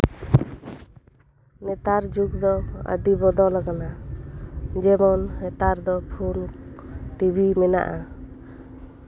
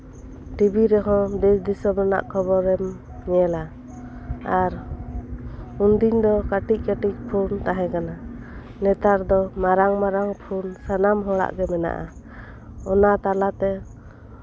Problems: background sounds at intervals